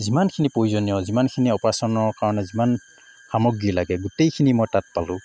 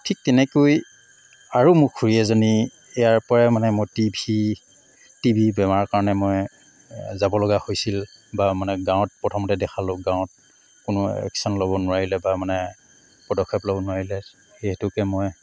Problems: constant background noise